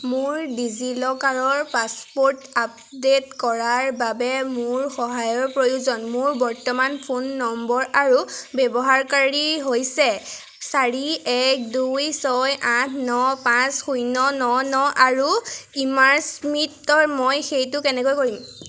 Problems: background sounds at intervals